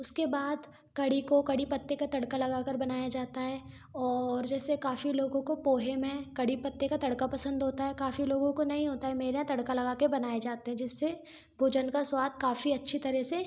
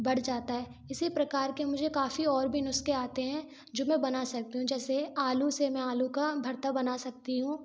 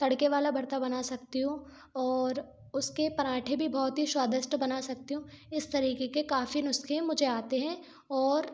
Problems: background sounds at intervals